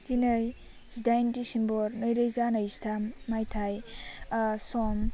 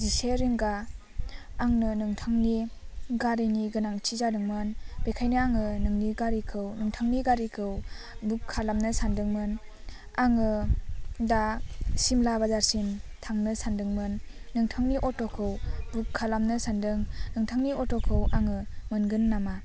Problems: low volume